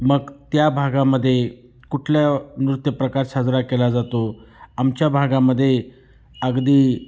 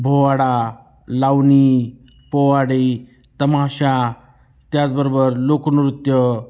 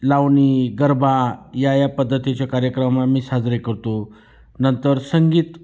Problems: constant background noise, background conversations at intervals